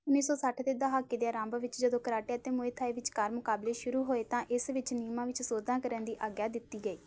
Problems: constant background noise